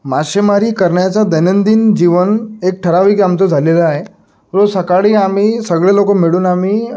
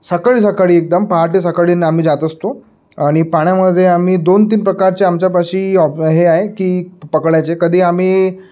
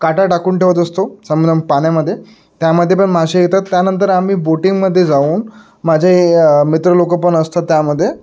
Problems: background sounds at intervals